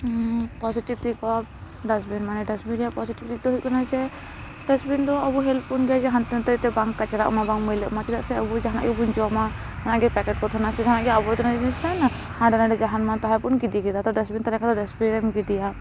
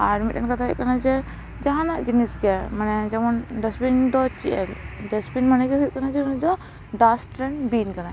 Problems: background sounds at intervals